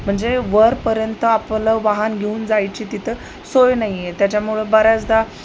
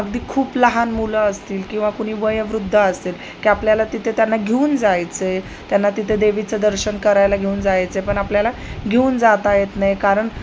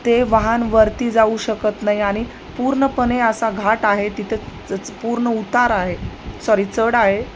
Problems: none marked